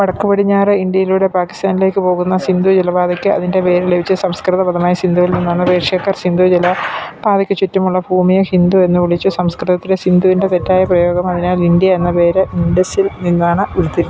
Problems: background sounds at intervals